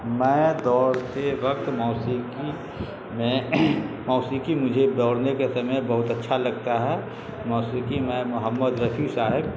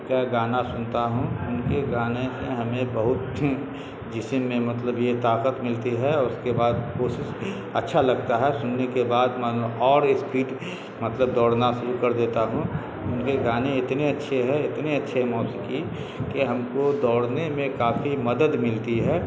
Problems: constant background noise